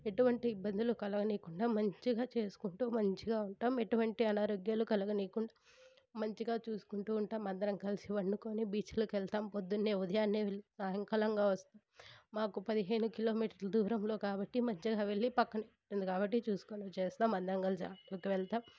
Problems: none marked